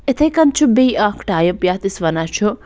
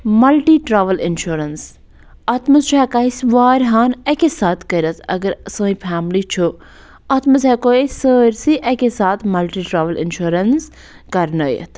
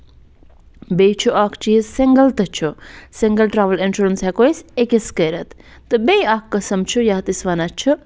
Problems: none marked